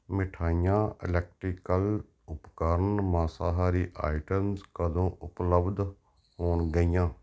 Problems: none marked